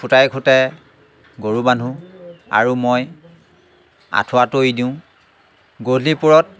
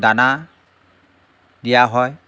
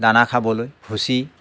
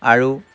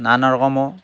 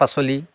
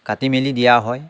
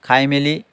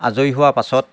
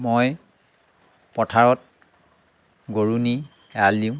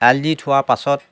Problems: background sounds at intervals, background conversations at intervals